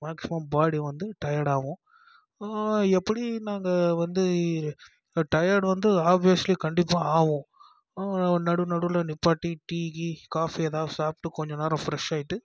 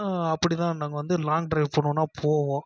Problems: low volume